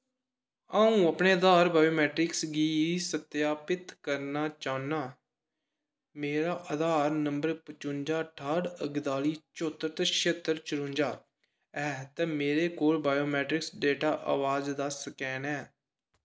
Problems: echo